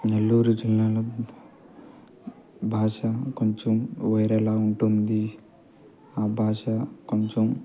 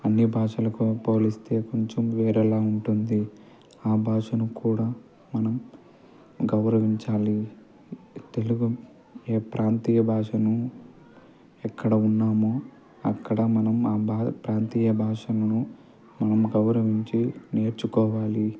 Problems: constant background noise, low volume